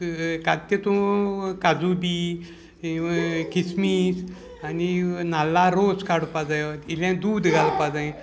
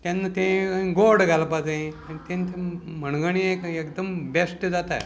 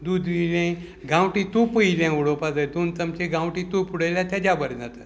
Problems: constant background noise, background conversations at intervals